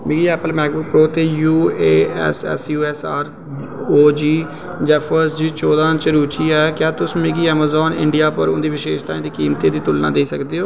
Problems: constant background noise, echo